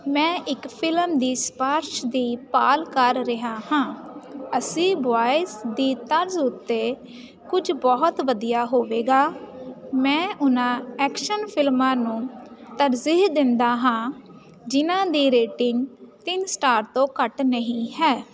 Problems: constant background noise